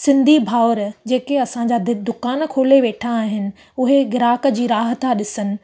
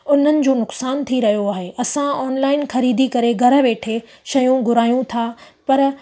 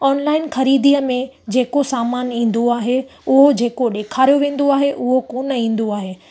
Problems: constant background noise